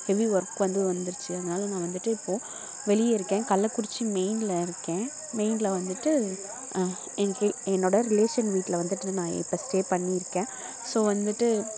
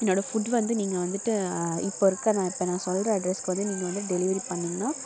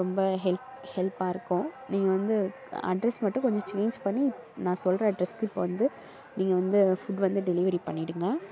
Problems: constant background noise, background conversations at intervals